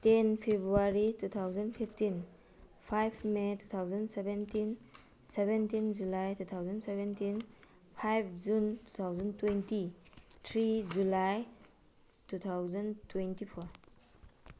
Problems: background sounds at intervals